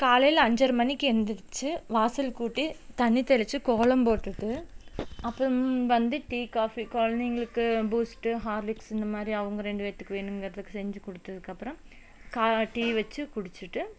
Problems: none marked